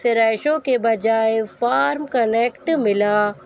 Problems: constant background noise